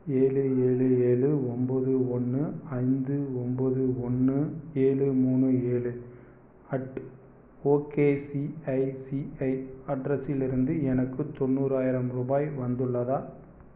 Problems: none marked